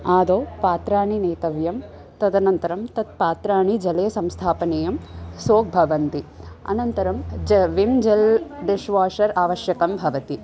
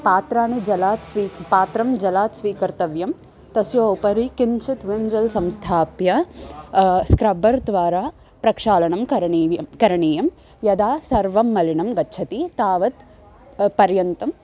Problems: constant background noise, background conversations at intervals